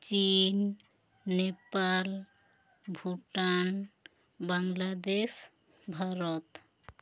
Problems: none marked